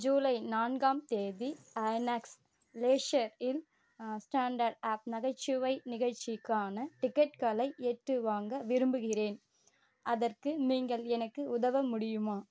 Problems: background sounds at intervals